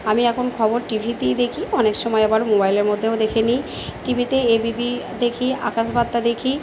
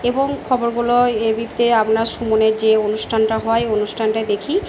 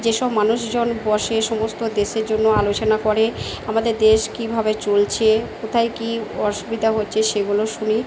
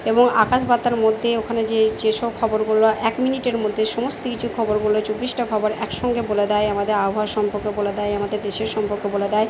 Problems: none marked